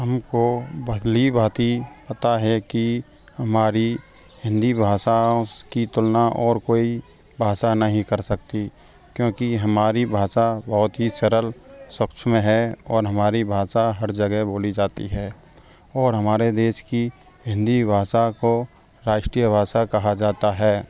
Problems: background sounds at intervals, background conversations at intervals